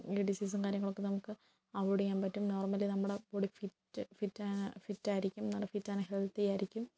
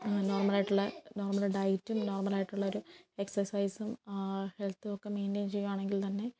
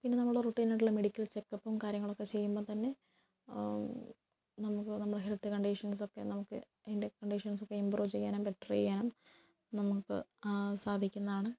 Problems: constant background noise, low volume